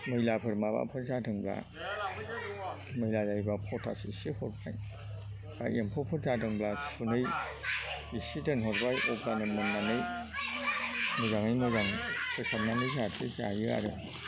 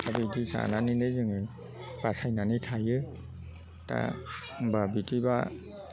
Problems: background conversations at intervals